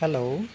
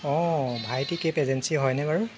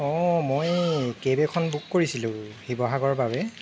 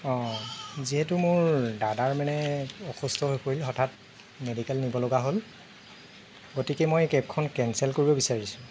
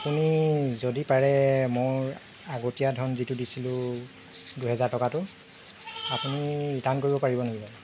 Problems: constant background noise